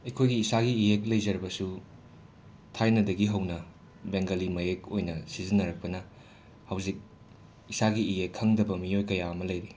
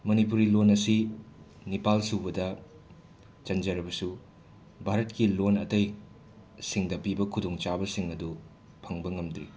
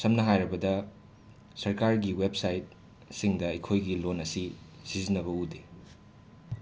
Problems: background sounds at intervals